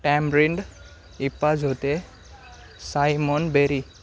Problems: constant background noise, background conversations at intervals